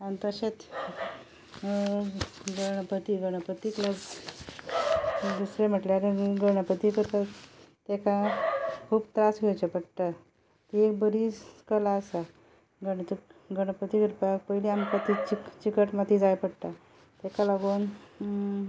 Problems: constant background noise